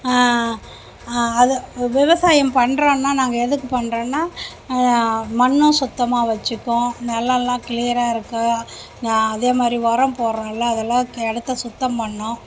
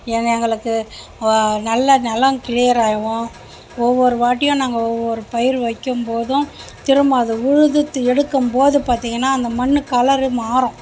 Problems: background sounds at intervals